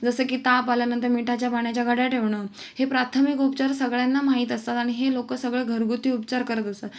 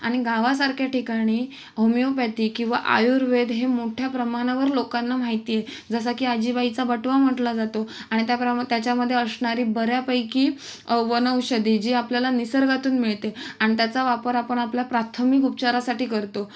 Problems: none marked